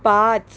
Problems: background sounds at intervals